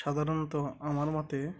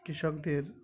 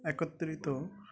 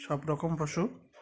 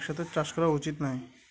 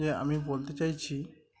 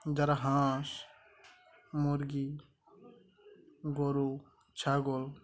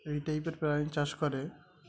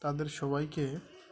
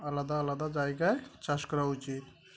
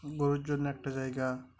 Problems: constant background noise, background conversations at intervals